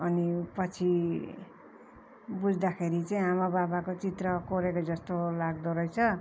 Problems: none marked